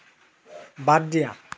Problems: none marked